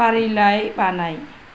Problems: none marked